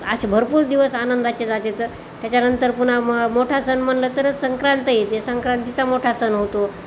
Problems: none marked